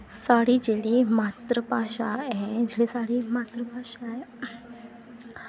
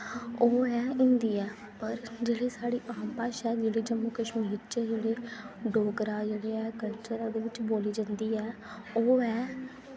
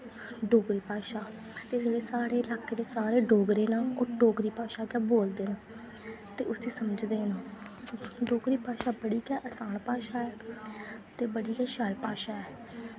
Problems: constant background noise